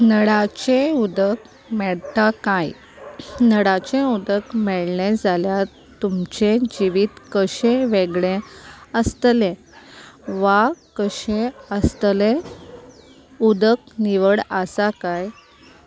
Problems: none marked